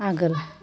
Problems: background conversations at intervals